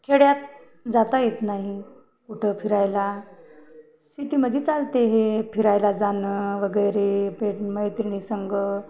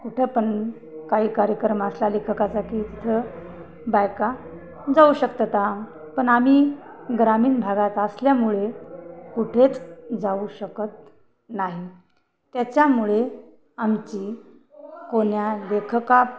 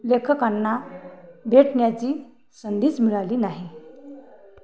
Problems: none marked